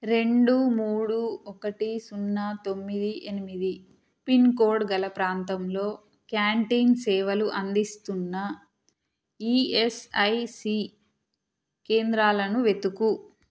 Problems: none marked